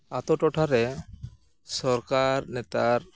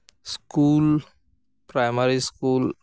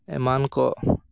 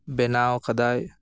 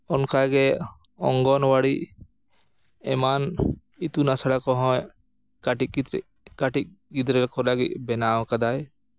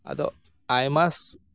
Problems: none marked